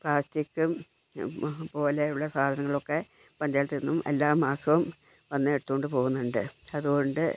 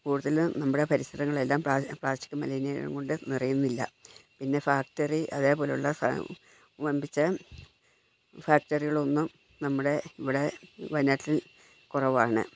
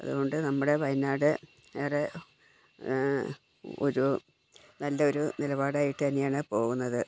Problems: background sounds at intervals, low volume